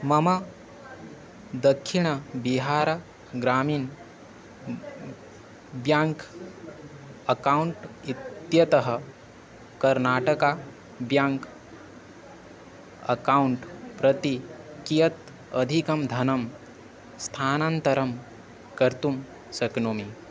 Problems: constant background noise